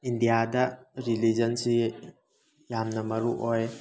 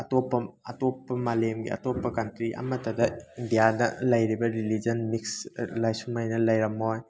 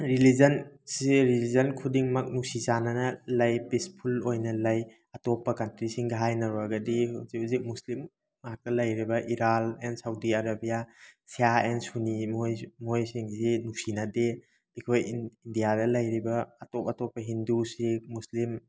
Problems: background sounds at intervals